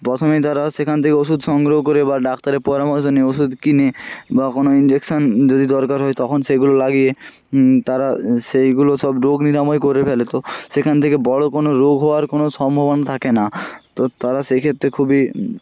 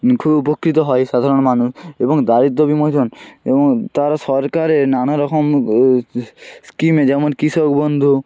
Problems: constant background noise